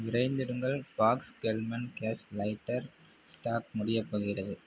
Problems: low volume